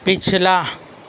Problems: constant background noise, background conversations at intervals